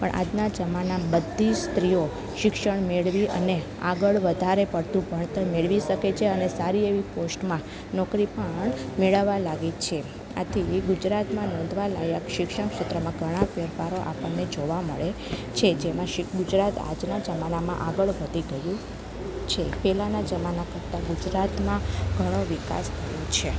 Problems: low volume